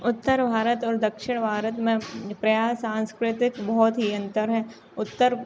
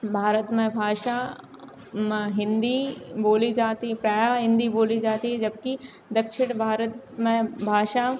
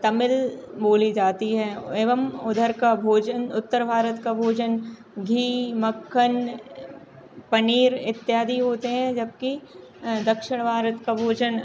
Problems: none marked